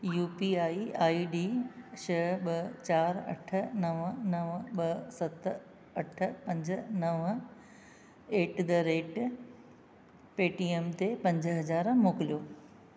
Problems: constant background noise